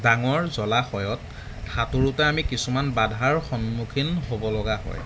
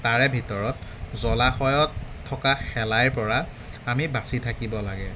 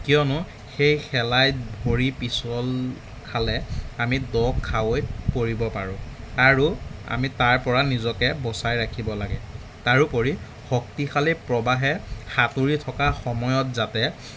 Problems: constant background noise